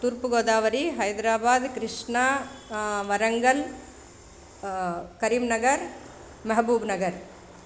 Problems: none marked